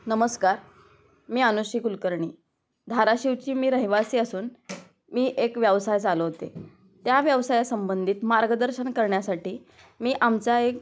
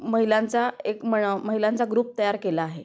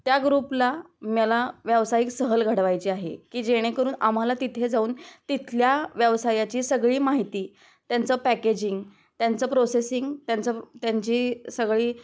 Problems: background sounds at intervals